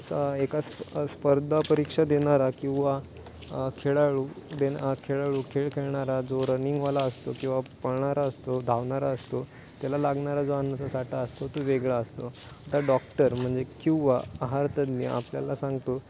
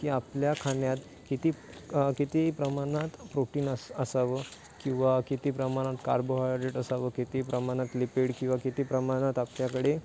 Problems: constant background noise, background conversations at intervals